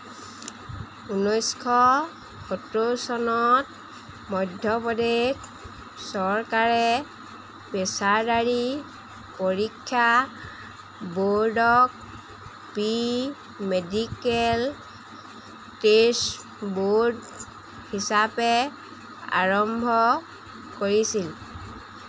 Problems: constant background noise